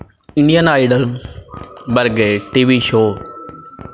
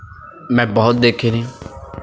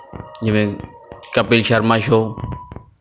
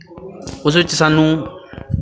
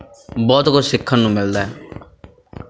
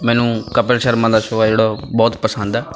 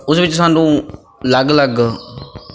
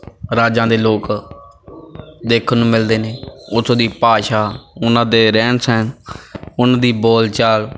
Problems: none marked